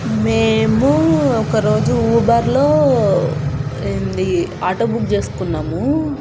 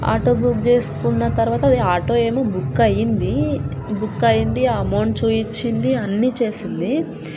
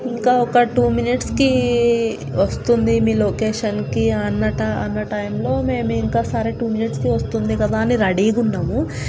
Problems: constant background noise